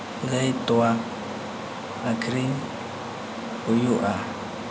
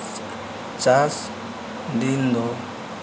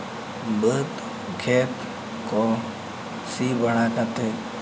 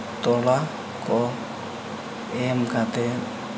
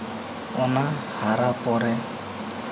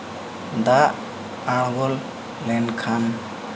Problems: constant background noise